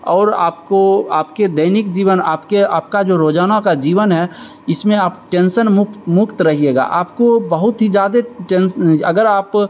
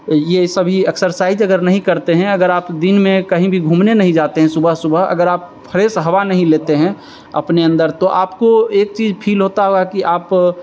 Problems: constant background noise